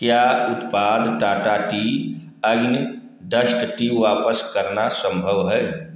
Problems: echo